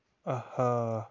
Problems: constant background noise